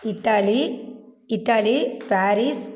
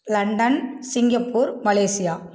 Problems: background sounds at intervals